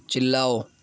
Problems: none marked